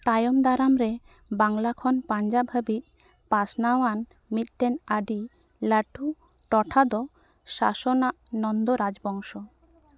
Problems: none marked